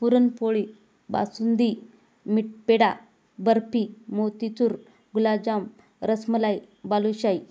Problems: none marked